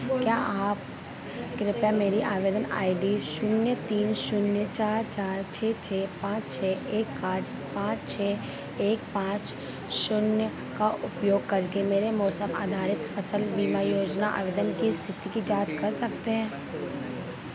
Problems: constant background noise